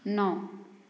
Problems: low volume